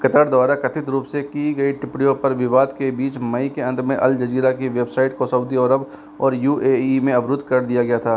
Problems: none marked